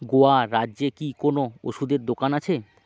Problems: constant background noise